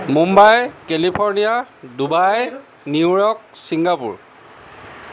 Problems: background conversations at intervals